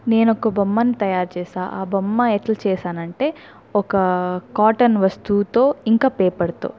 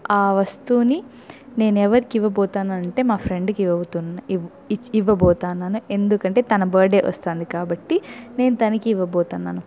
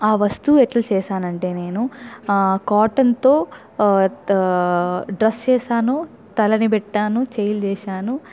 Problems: none marked